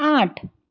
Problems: none marked